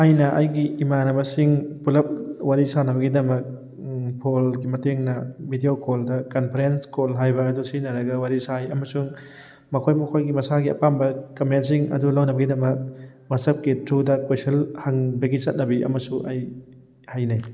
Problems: background sounds at intervals